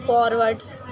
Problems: background sounds at intervals, background conversations at intervals